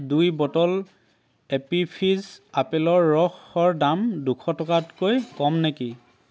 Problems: constant background noise, background conversations at intervals